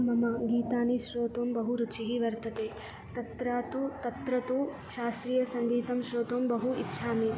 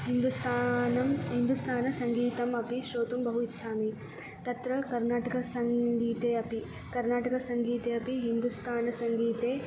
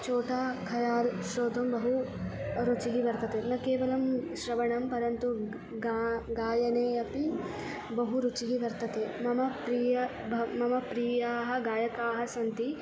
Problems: background sounds at intervals